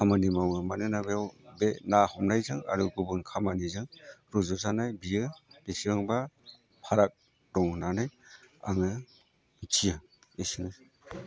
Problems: none marked